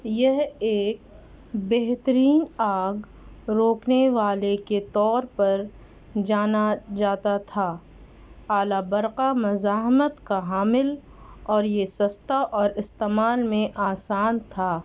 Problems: constant background noise